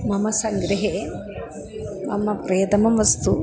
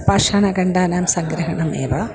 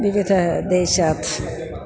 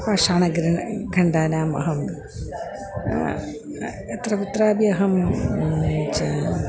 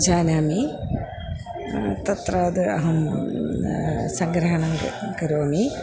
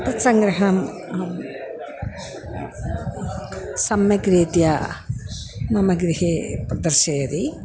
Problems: none marked